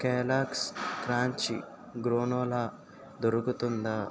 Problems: constant background noise